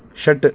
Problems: constant background noise